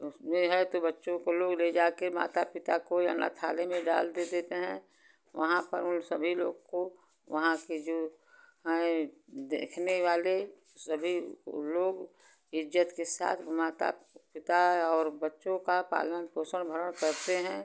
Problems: constant background noise